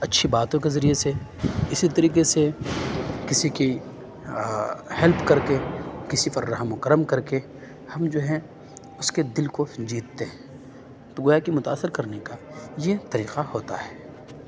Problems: none marked